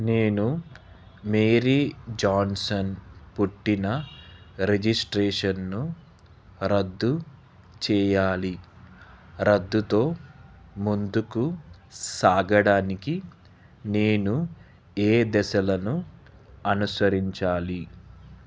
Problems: none marked